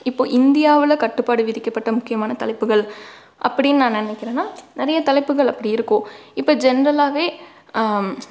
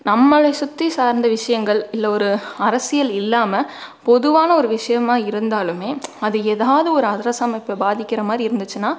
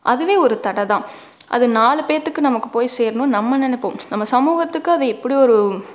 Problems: none marked